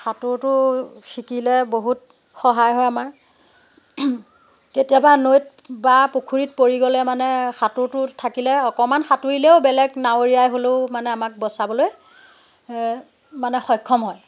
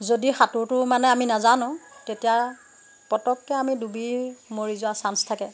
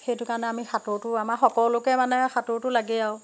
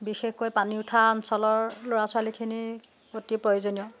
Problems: constant background noise